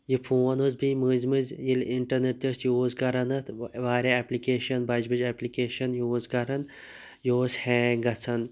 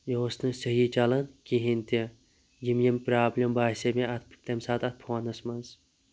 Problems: background sounds at intervals